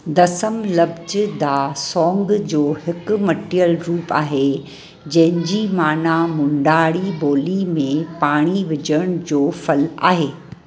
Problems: constant background noise